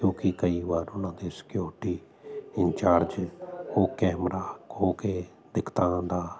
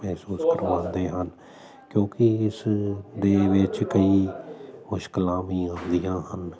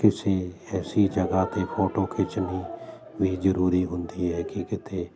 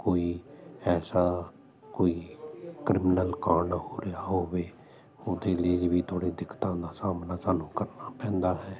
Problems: constant background noise